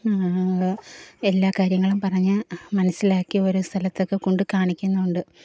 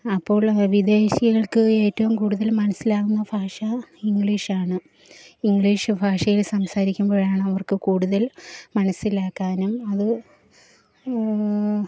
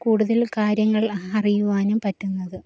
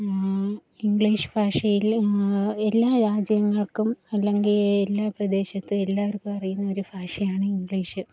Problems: low volume